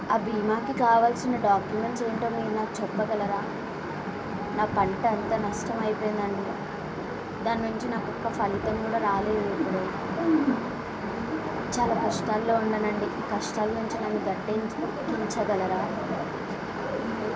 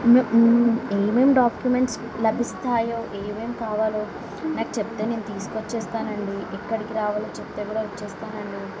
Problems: background sounds at intervals, background conversations at intervals